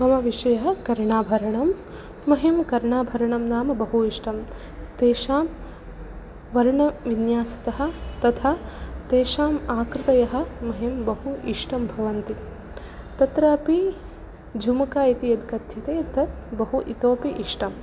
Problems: none marked